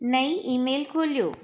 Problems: echo